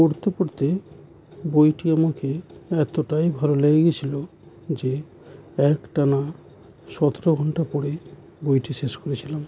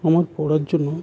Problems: constant background noise